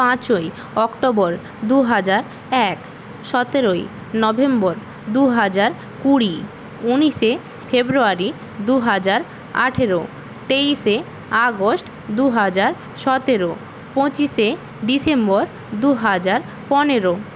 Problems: constant background noise